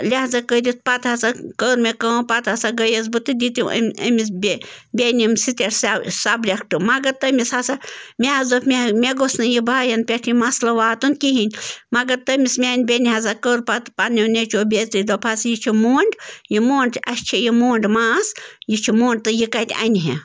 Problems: constant background noise